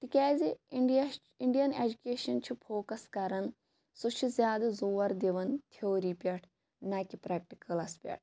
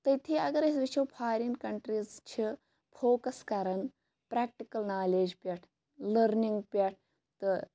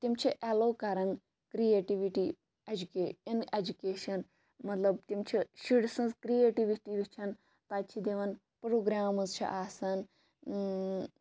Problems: background sounds at intervals